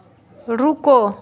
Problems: constant background noise